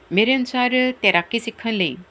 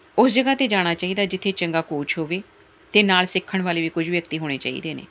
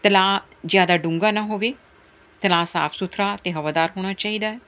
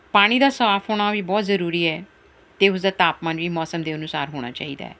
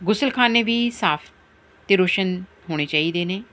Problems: none marked